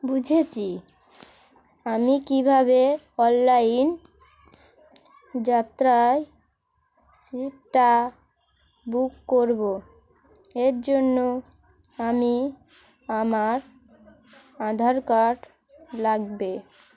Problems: constant background noise, continuous background conversations